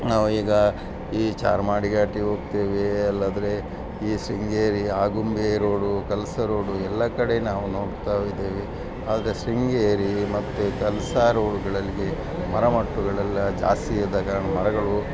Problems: none marked